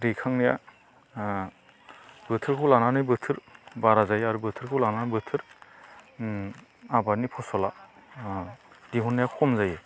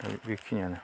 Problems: constant background noise